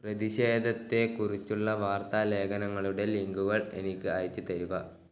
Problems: none marked